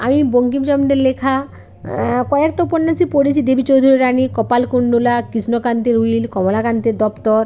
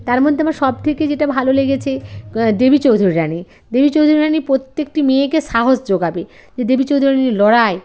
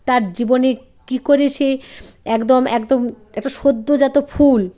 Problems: constant background noise, background conversations at intervals